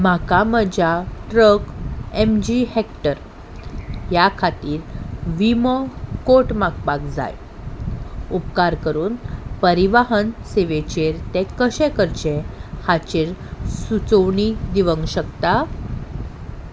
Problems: background sounds at intervals